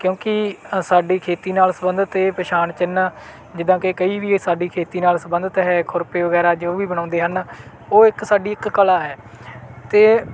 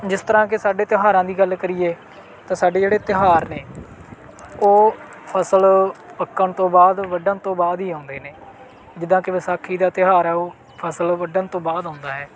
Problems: none marked